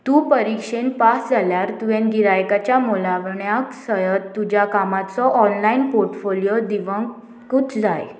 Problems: none marked